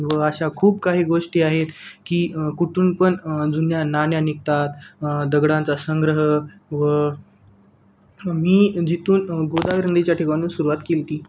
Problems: background sounds at intervals